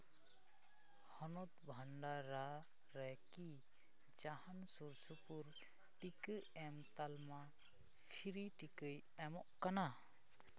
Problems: constant background noise, background conversations at intervals, low volume